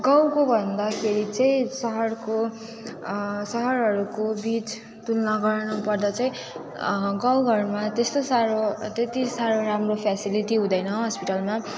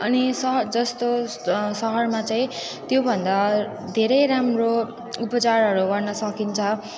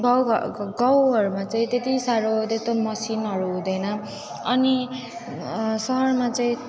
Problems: constant background noise, continuous background conversations